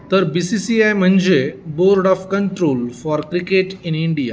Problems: constant background noise, continuous background conversations